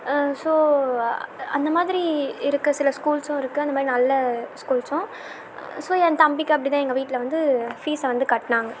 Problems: constant background noise